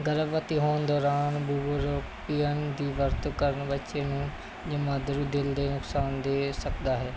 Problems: constant background noise